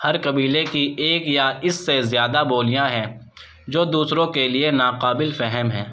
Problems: background sounds at intervals